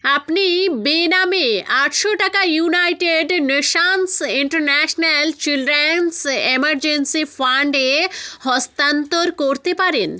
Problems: background sounds at intervals